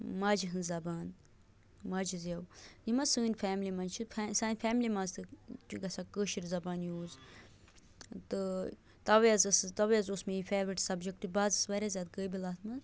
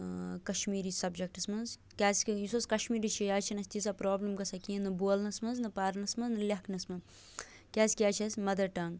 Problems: constant background noise